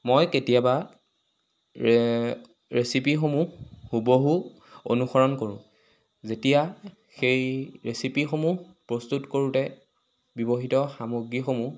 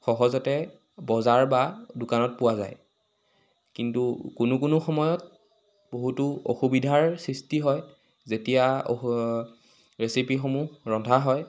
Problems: constant background noise